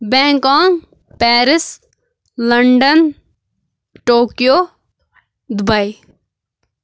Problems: constant background noise